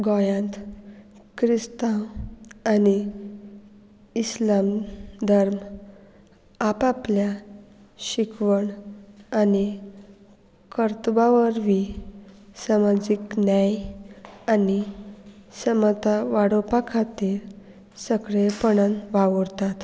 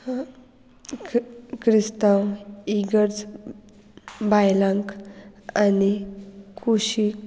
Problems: none marked